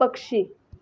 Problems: background conversations at intervals